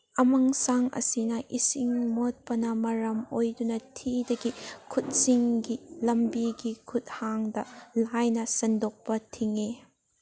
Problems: none marked